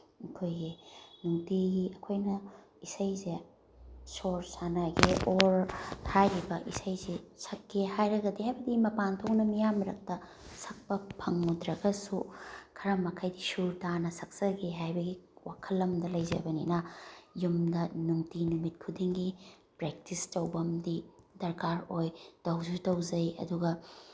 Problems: none marked